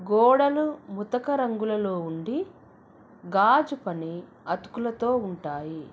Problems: none marked